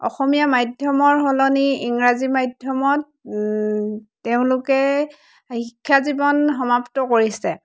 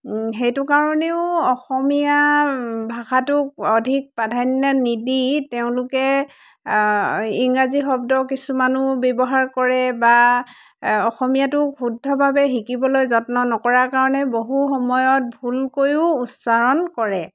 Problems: constant background noise, background conversations at intervals